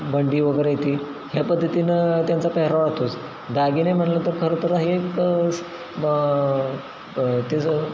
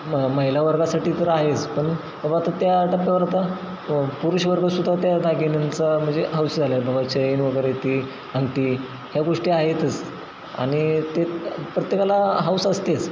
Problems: constant background noise